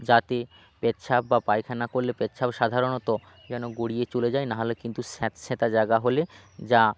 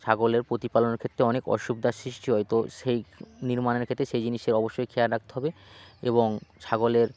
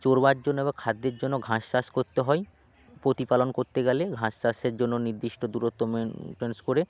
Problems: background sounds at intervals